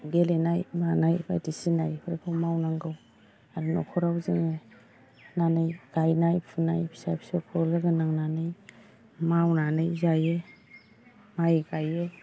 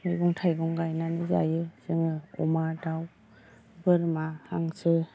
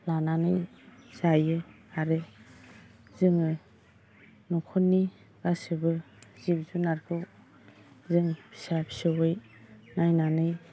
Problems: background sounds at intervals, low volume